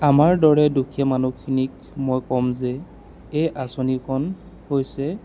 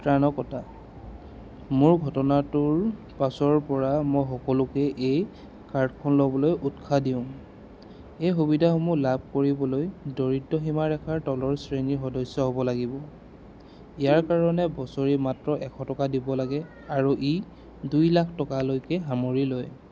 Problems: constant background noise